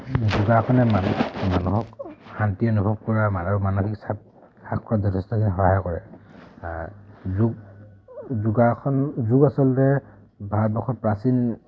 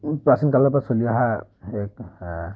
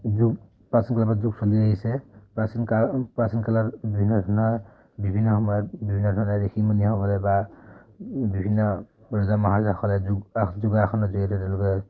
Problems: none marked